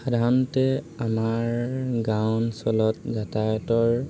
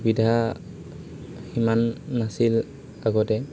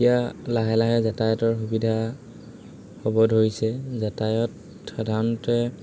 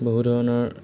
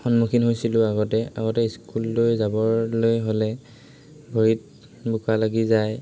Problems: constant background noise, background conversations at intervals